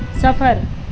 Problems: background sounds at intervals